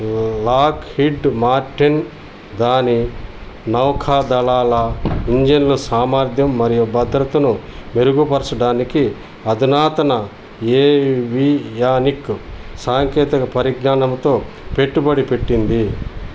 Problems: none marked